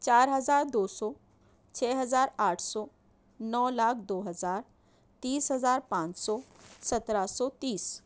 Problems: none marked